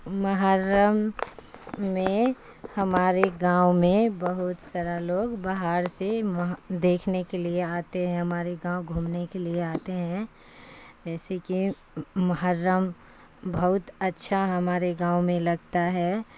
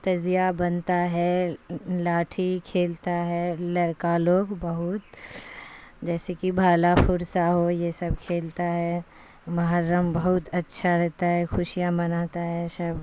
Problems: constant background noise